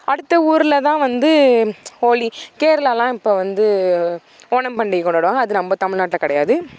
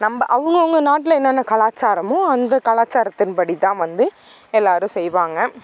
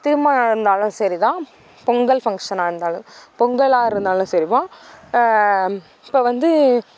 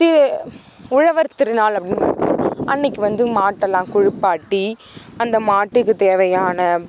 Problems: background sounds at intervals